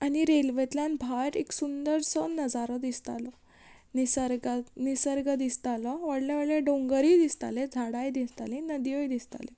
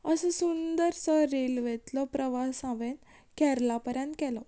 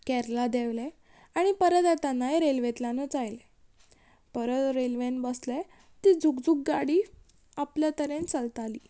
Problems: background sounds at intervals